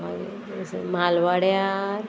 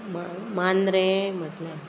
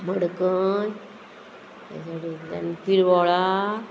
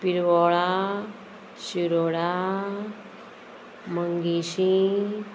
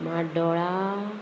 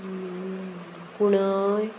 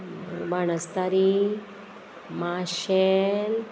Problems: constant background noise